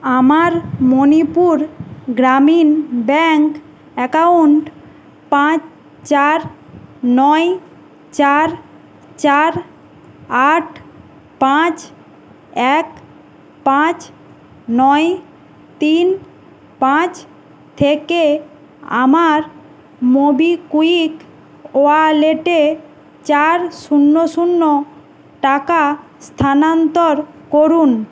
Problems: constant background noise